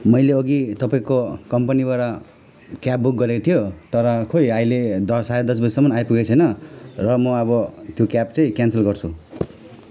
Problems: none marked